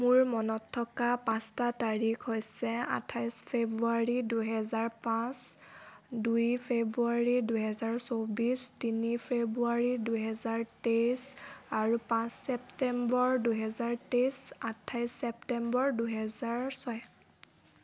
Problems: none marked